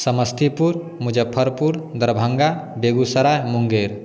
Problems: none marked